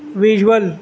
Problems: constant background noise, background conversations at intervals